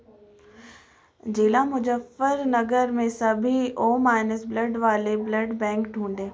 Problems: none marked